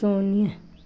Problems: constant background noise